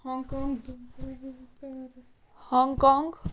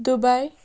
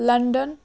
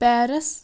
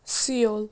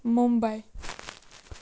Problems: constant background noise, background conversations at intervals